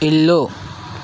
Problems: constant background noise